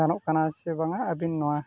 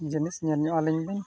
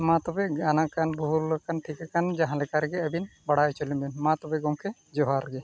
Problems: none marked